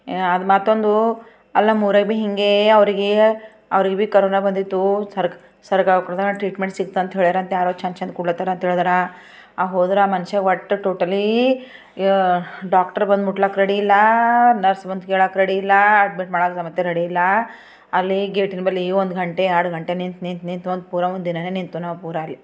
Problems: background sounds at intervals